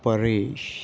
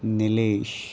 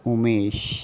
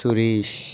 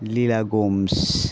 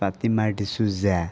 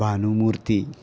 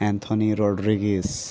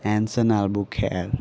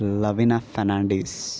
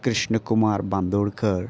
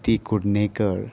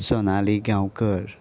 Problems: constant background noise, continuous background conversations